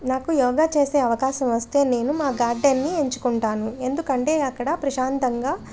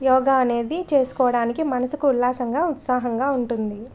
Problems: none marked